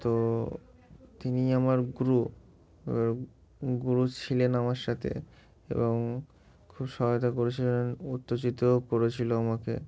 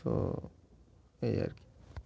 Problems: none marked